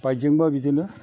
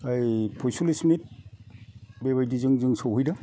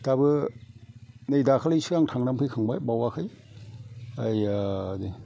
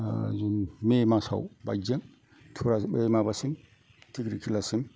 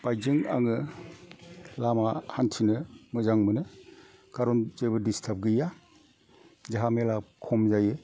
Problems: low volume